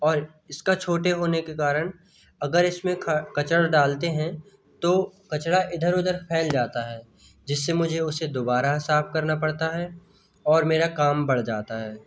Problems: none marked